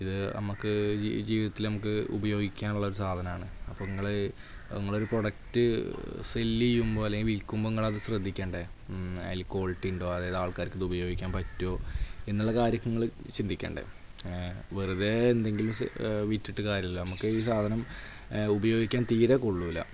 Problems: constant background noise, low volume